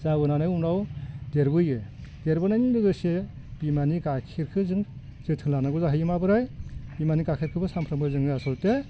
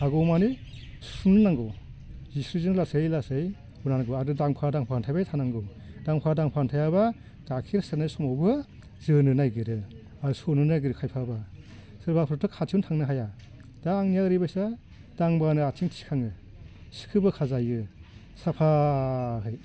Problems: constant background noise